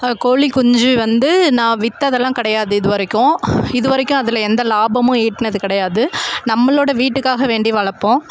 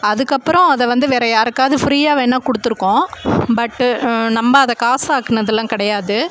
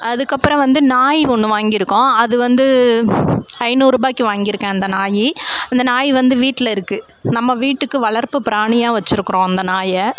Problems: constant background noise